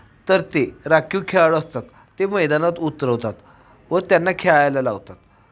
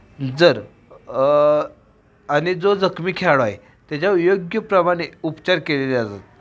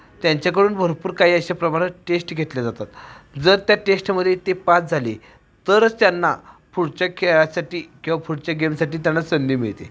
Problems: none marked